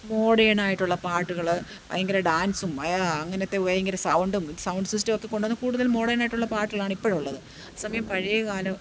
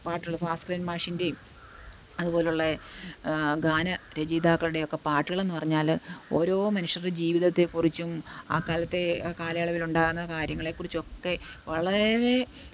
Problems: none marked